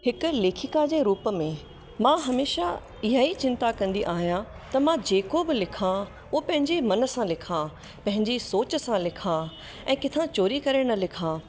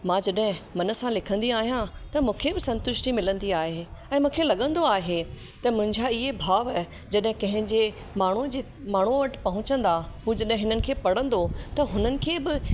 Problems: constant background noise